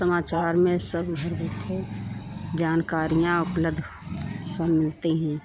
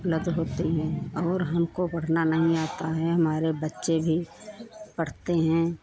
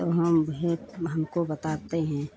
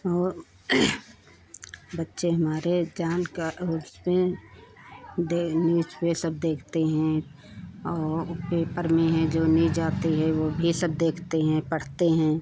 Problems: continuous background conversations